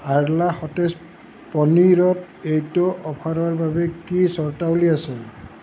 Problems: constant background noise